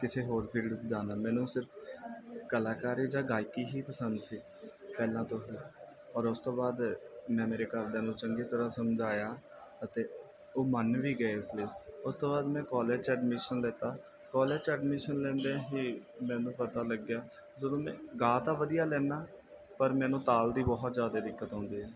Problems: background sounds at intervals